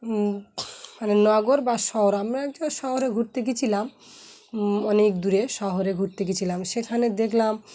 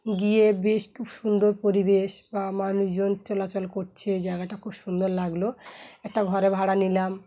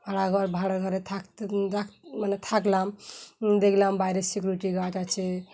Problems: constant background noise